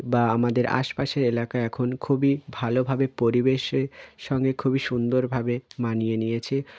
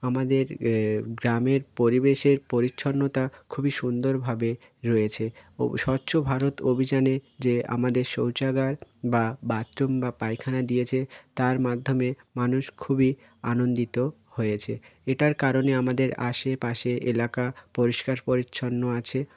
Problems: none marked